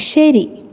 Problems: none marked